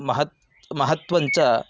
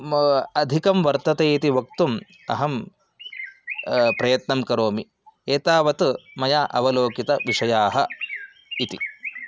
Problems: background sounds at intervals